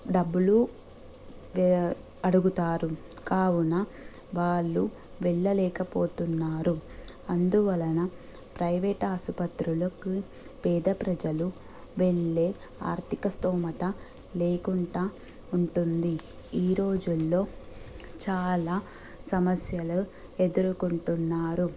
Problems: constant background noise